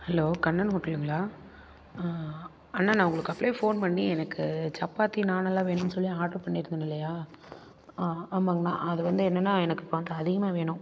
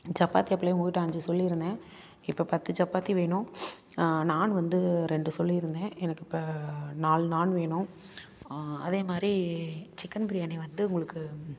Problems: none marked